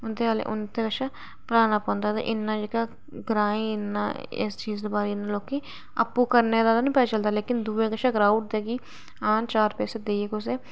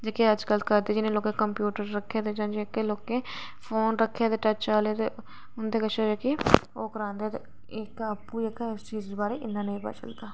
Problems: none marked